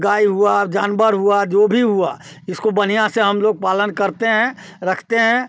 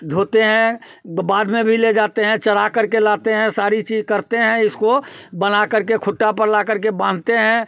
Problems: none marked